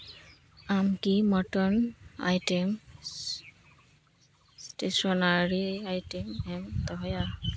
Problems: none marked